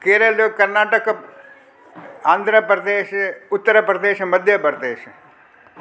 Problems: constant background noise, echo